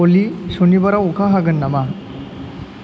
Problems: constant background noise